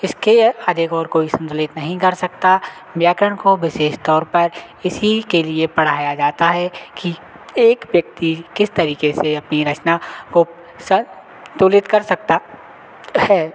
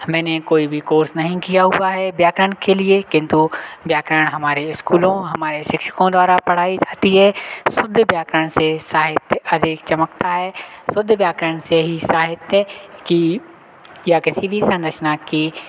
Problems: none marked